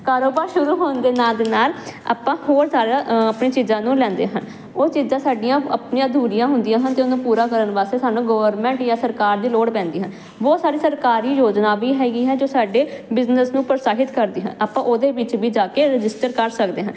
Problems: none marked